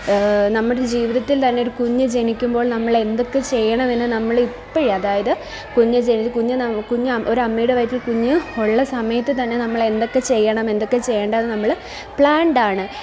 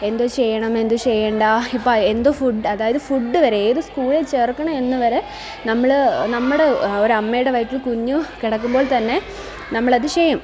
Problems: continuous background conversations